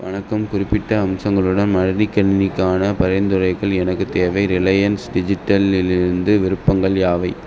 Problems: constant background noise